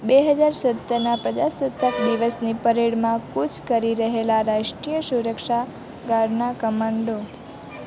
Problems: constant background noise